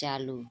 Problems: none marked